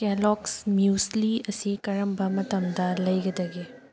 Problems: background sounds at intervals